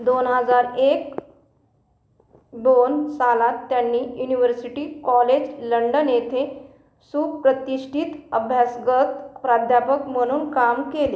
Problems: constant background noise